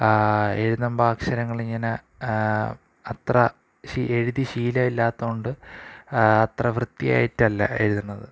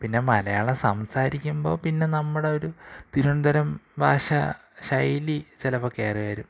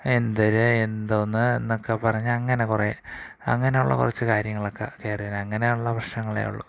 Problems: none marked